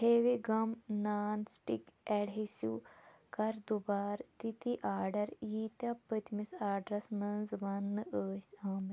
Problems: none marked